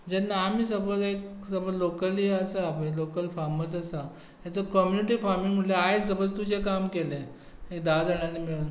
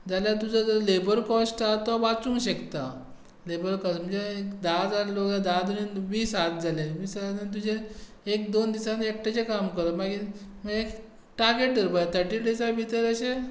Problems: none marked